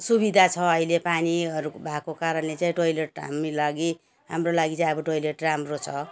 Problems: background sounds at intervals